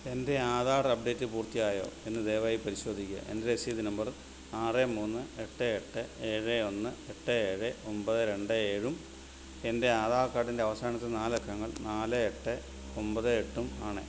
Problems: constant background noise, low volume